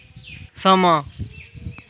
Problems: background sounds at intervals